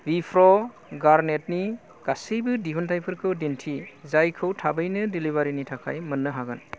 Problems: low volume